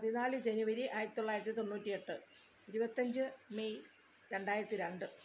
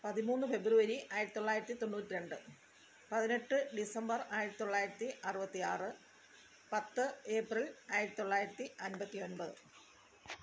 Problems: background sounds at intervals, low volume